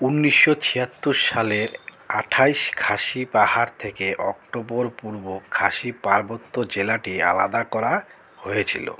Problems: constant background noise